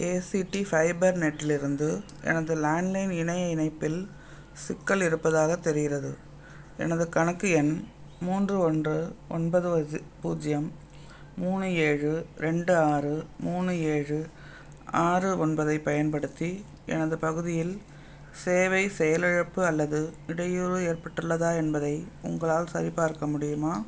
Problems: background sounds at intervals